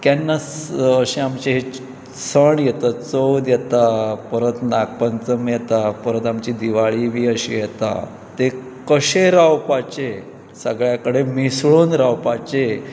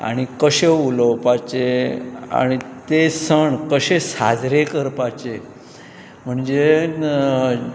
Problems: none marked